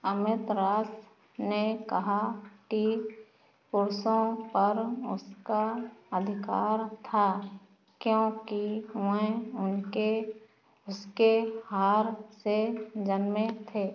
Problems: background sounds at intervals